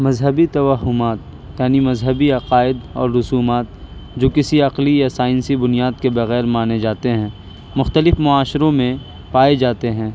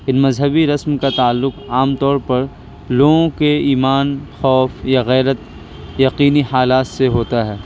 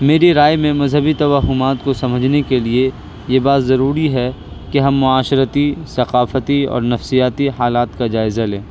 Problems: constant background noise